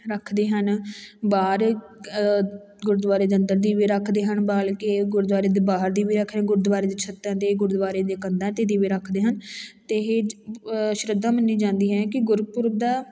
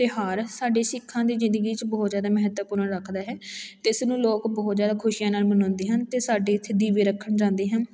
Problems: background sounds at intervals, background conversations at intervals